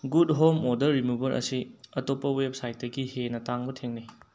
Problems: low volume